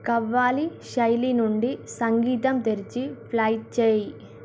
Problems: none marked